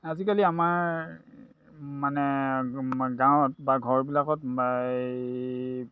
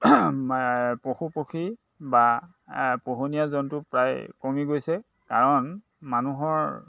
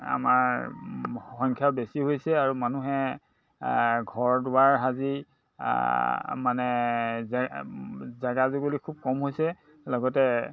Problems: constant background noise, background conversations at intervals